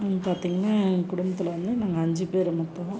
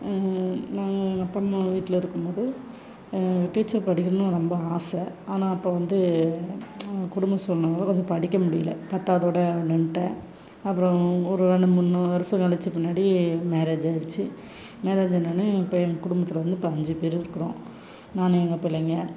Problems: constant background noise